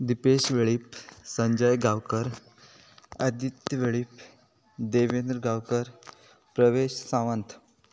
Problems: background sounds at intervals